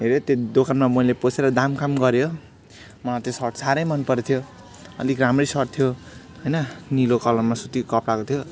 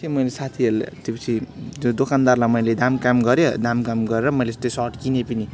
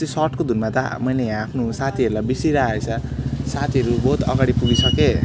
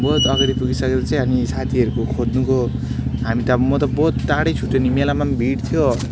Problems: constant background noise, background conversations at intervals